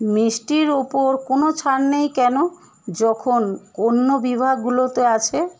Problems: constant background noise